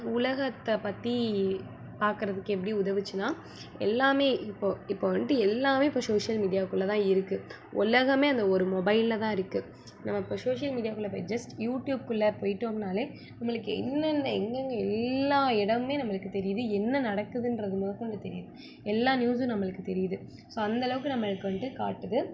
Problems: low volume